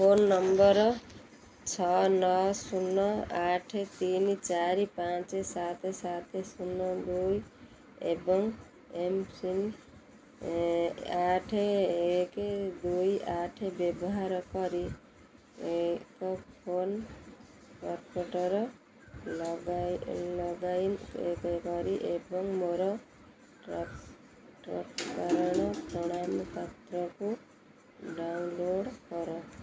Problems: constant background noise